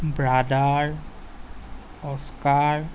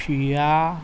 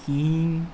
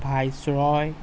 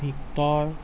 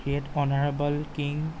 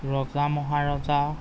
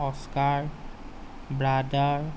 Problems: constant background noise